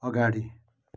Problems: none marked